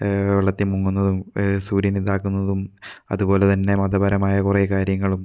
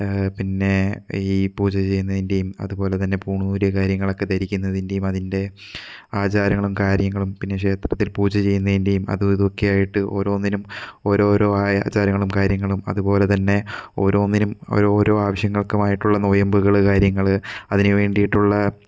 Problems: none marked